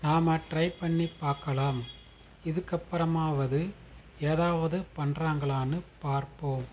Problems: constant background noise